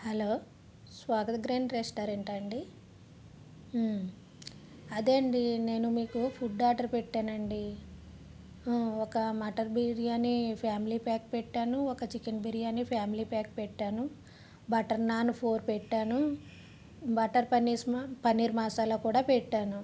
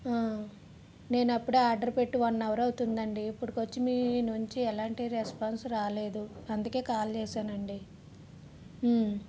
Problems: constant background noise